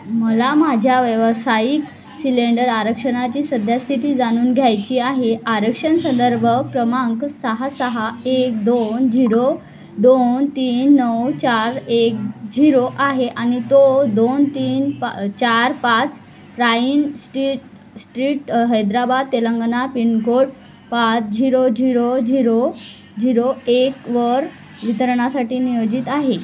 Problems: constant background noise, background conversations at intervals